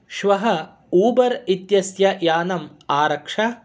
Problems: none marked